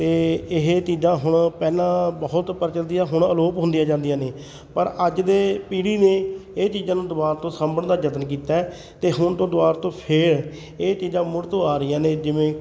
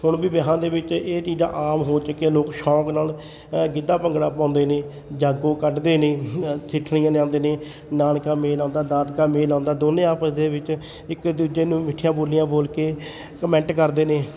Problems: continuous background conversations